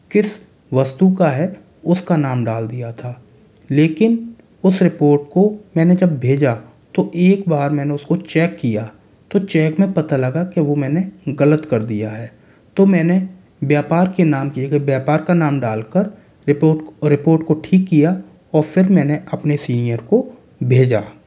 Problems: background sounds at intervals